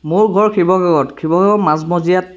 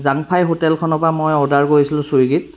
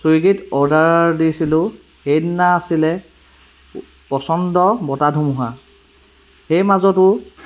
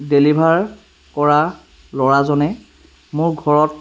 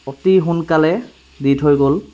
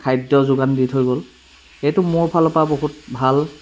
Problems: background sounds at intervals